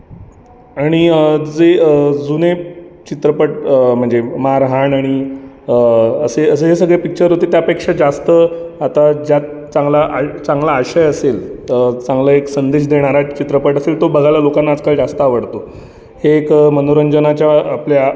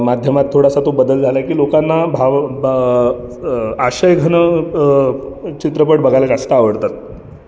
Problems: background sounds at intervals, background conversations at intervals